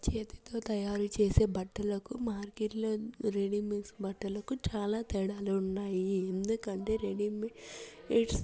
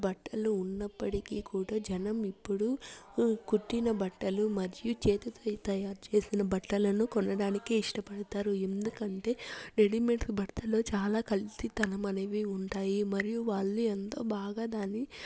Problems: low volume